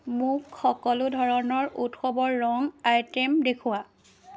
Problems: none marked